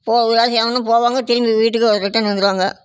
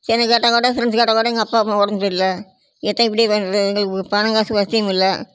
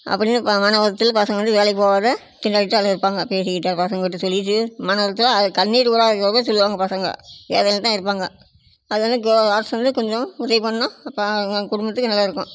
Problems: none marked